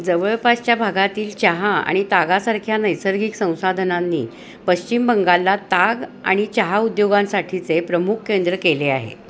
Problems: background sounds at intervals